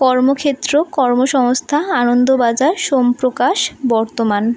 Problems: none marked